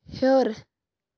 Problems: background sounds at intervals